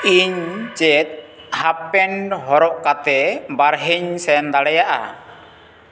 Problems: constant background noise